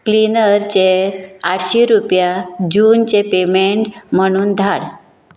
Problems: background sounds at intervals